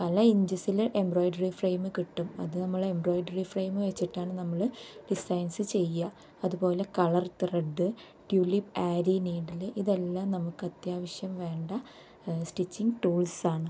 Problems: low volume